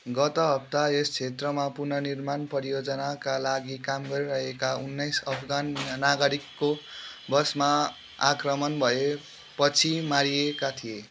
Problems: none marked